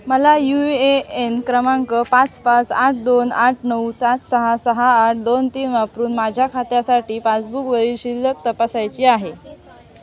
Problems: constant background noise, background conversations at intervals